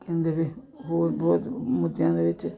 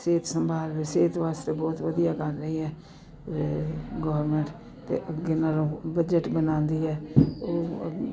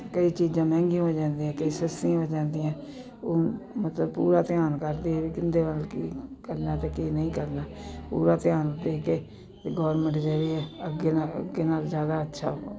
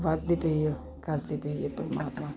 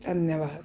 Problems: continuous background conversations